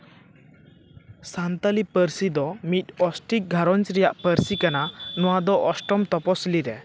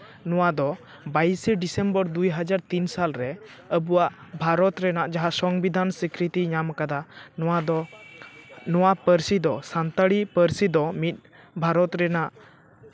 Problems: none marked